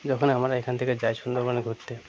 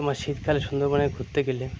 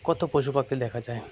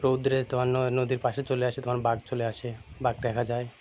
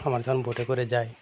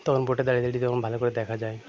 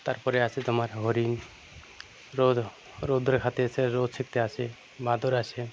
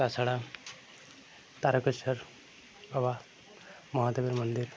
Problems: constant background noise, continuous background conversations